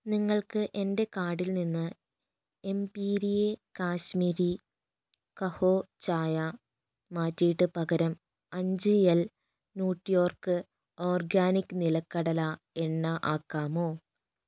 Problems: low volume